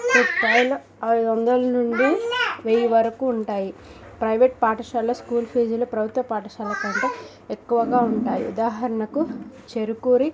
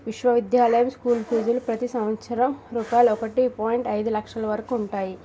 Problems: background sounds at intervals, background conversations at intervals